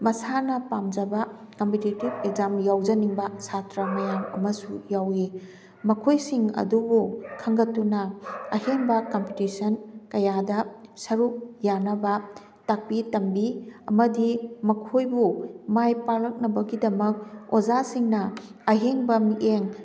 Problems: background sounds at intervals